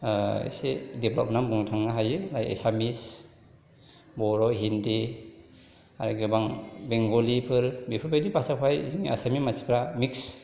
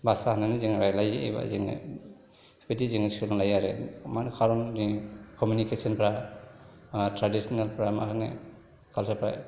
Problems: background conversations at intervals